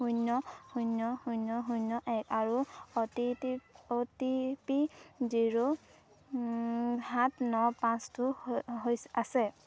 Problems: none marked